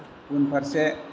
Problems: constant background noise